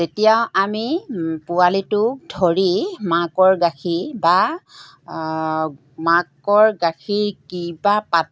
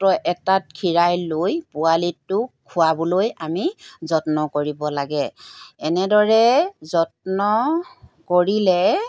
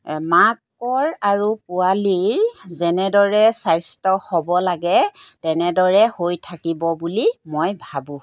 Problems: background sounds at intervals